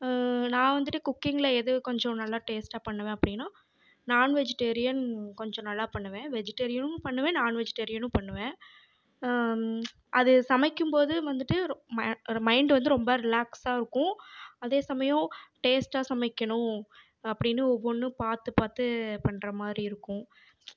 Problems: background sounds at intervals